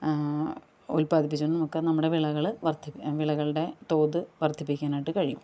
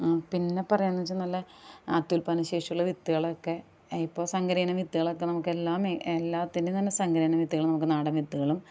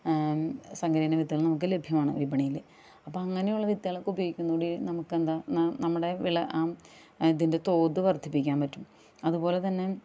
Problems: none marked